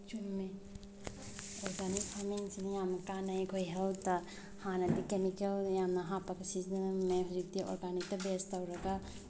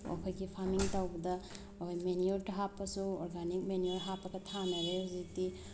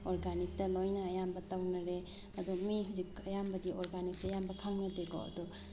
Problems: none marked